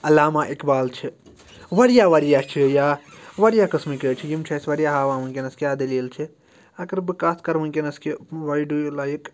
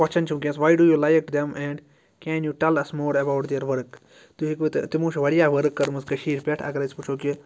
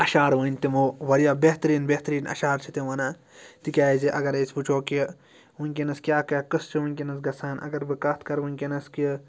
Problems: background sounds at intervals